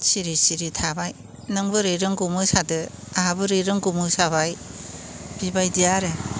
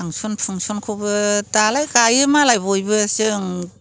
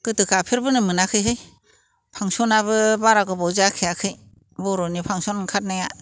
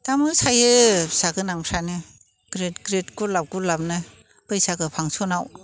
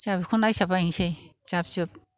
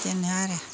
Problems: constant background noise